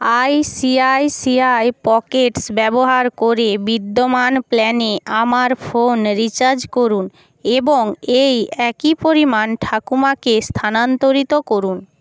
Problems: background sounds at intervals